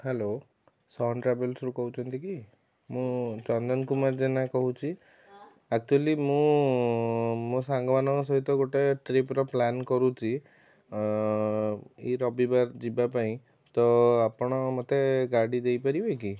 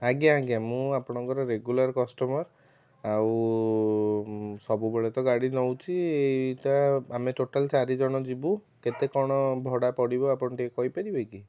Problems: background sounds at intervals, background conversations at intervals